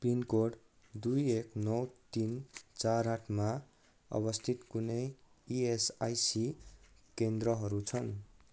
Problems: none marked